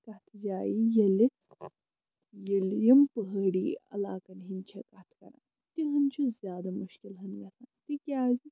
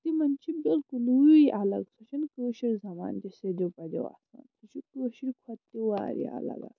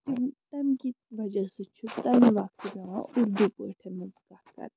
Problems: low volume